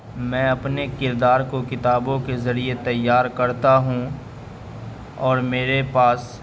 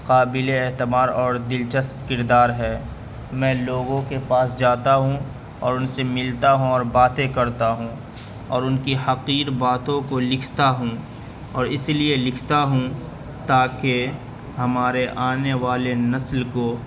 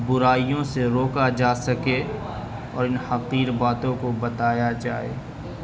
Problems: constant background noise, background conversations at intervals